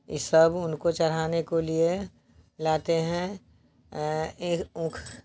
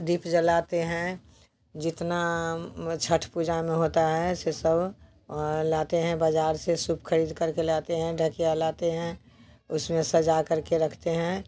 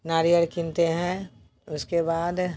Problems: constant background noise